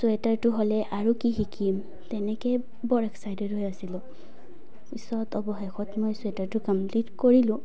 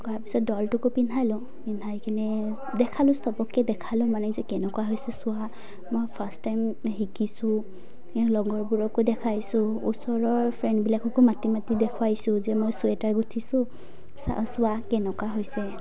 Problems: none marked